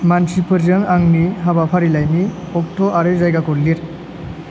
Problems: constant background noise